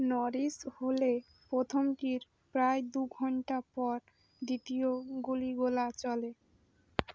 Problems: background sounds at intervals